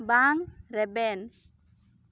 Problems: none marked